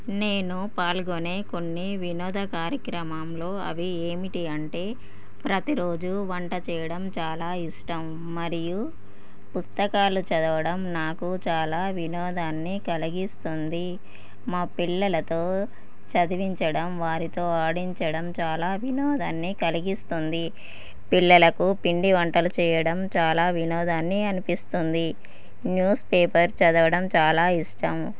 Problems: none marked